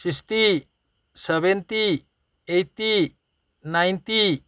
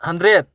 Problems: none marked